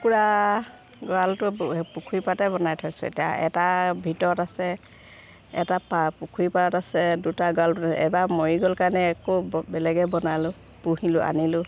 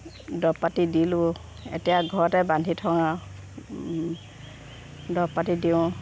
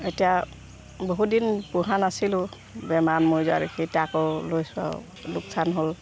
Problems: background sounds at intervals